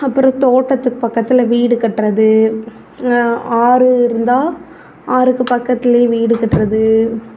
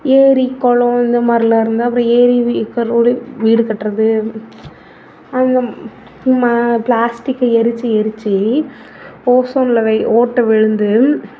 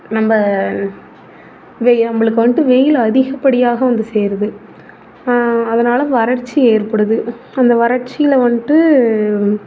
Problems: none marked